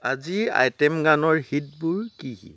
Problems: background sounds at intervals